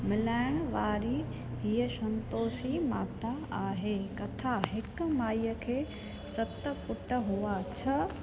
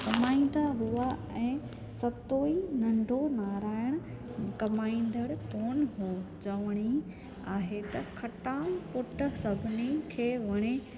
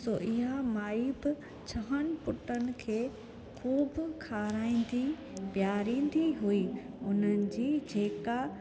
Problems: constant background noise